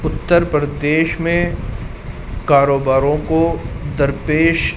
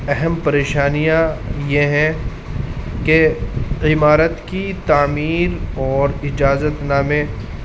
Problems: constant background noise